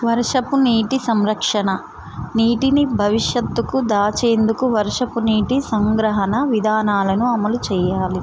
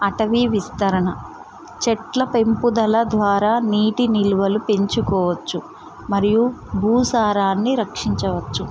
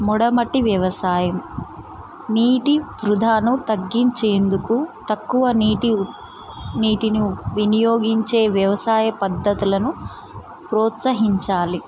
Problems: constant background noise